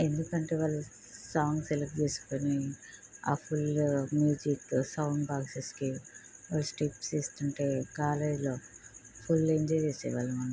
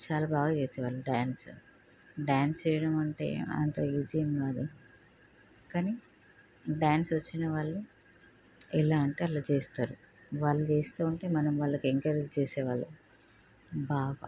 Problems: none marked